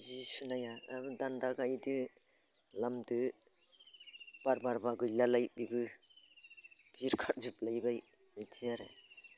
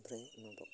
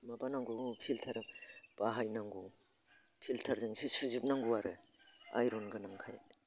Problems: constant background noise